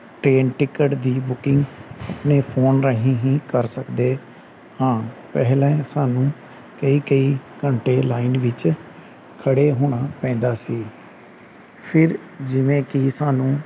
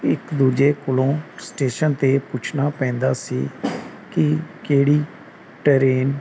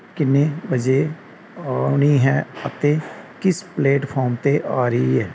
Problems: none marked